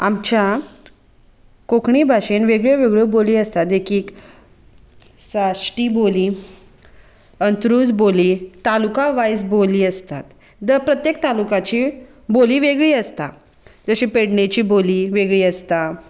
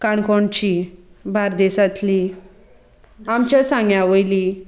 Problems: constant background noise, continuous background conversations